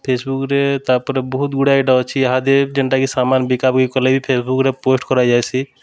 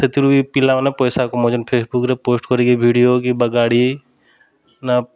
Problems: constant background noise